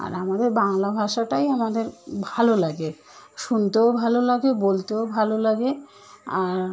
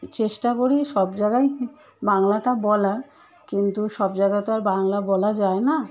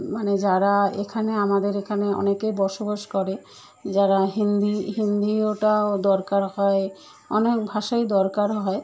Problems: none marked